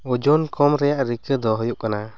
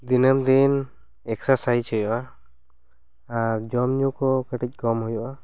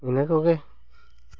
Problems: none marked